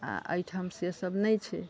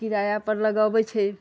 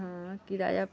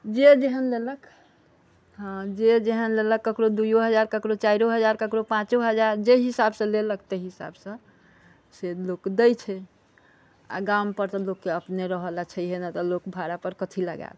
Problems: background conversations at intervals